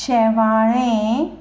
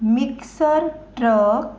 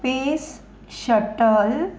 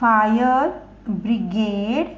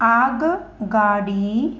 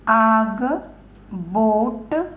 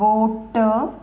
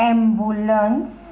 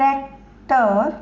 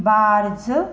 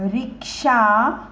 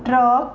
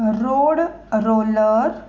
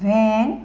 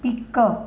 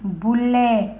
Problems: none marked